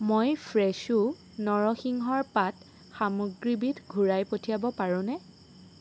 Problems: none marked